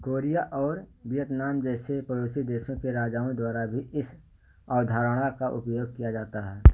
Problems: background sounds at intervals